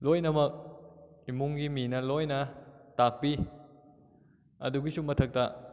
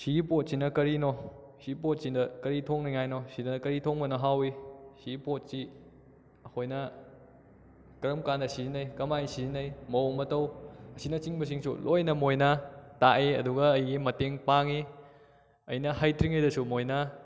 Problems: none marked